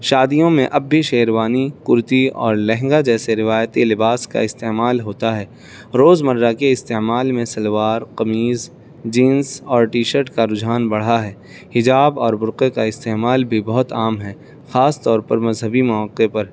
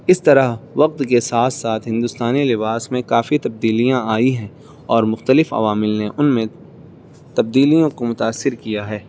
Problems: constant background noise